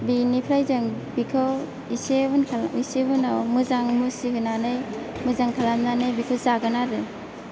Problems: constant background noise, background conversations at intervals